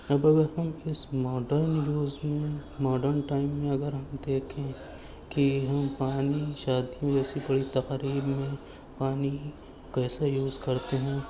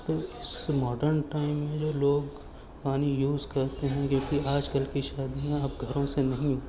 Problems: constant background noise, low volume